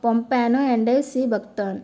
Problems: none marked